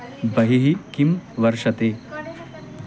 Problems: constant background noise, continuous background conversations